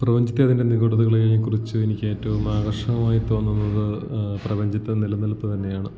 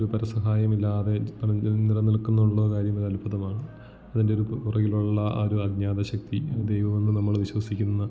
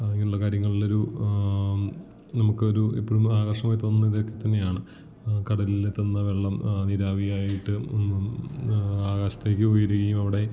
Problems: none marked